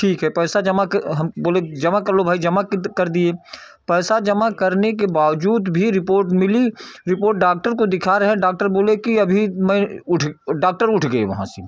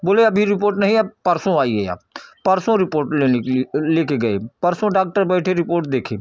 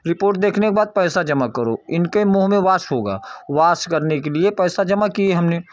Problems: none marked